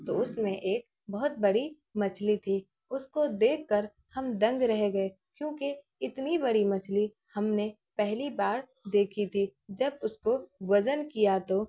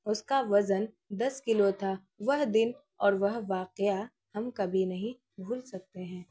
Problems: none marked